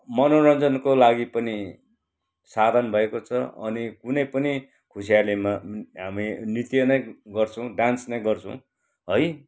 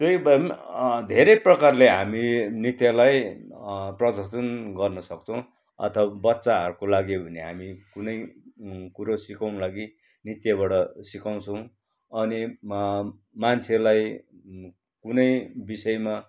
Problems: background sounds at intervals